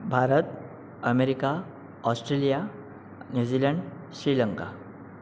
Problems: constant background noise